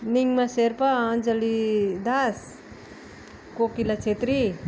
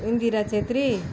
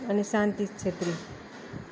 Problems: constant background noise, continuous background conversations